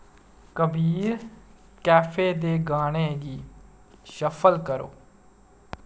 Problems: none marked